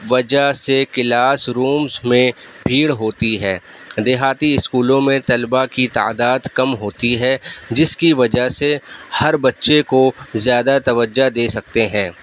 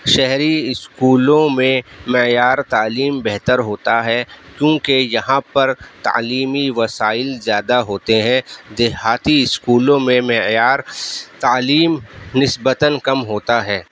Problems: background sounds at intervals